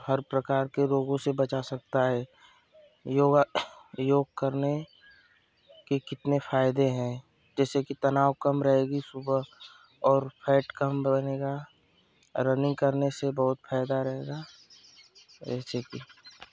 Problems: constant background noise